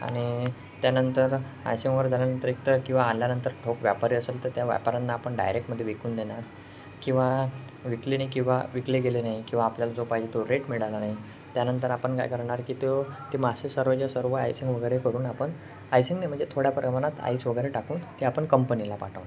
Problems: background sounds at intervals